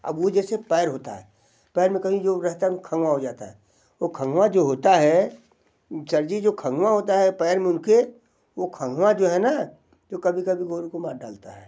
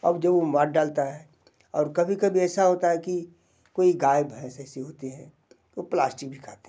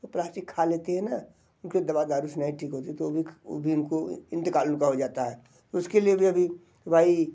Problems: none marked